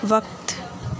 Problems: constant background noise